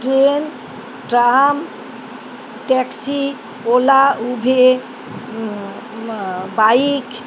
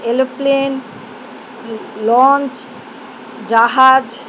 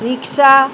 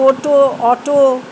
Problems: constant background noise